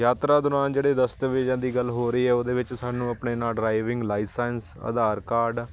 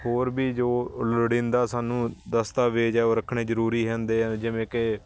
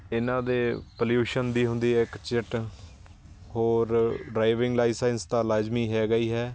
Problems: constant background noise